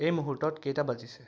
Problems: background sounds at intervals